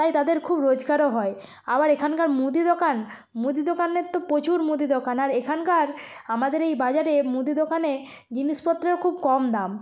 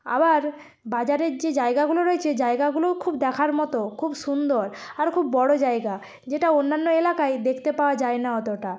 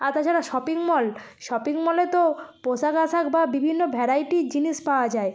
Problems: background sounds at intervals